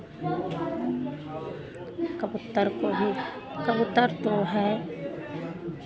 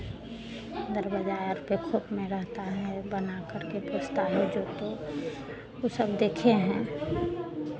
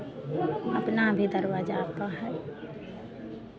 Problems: constant background noise